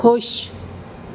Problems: none marked